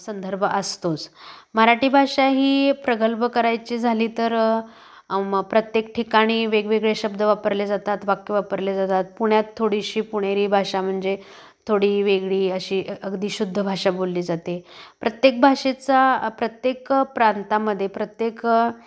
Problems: constant background noise, background conversations at intervals